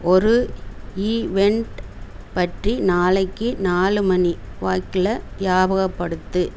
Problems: constant background noise